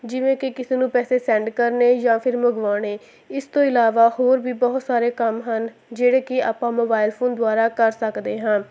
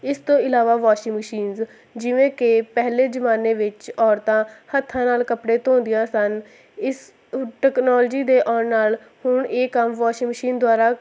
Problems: constant background noise